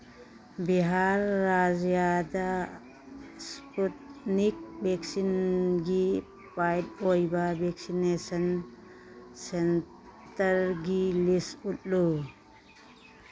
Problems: background sounds at intervals